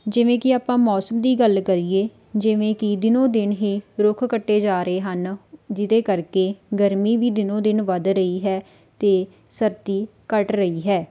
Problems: background sounds at intervals